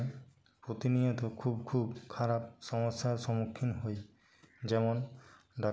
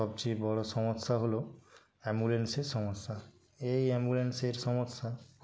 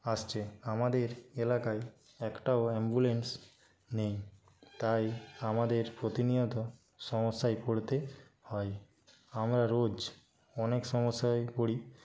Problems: none marked